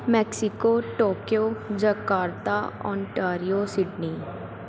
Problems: constant background noise